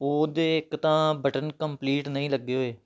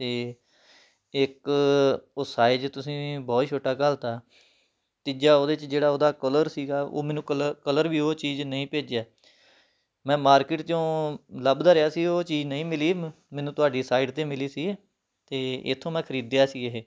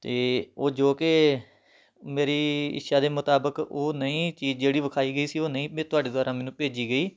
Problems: background sounds at intervals